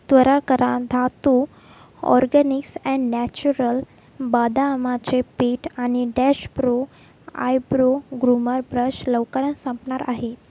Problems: background sounds at intervals